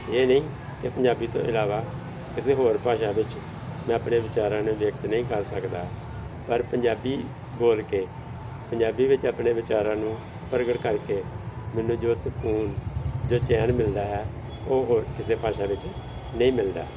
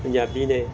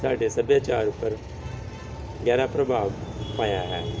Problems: constant background noise